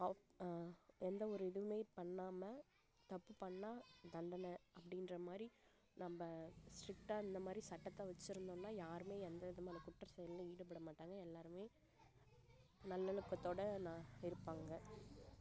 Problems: background sounds at intervals, low volume